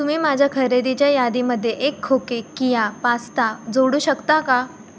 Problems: background sounds at intervals